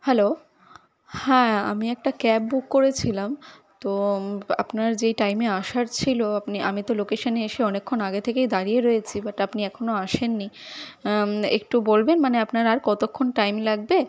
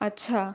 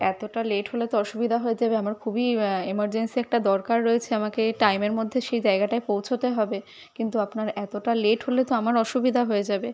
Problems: none marked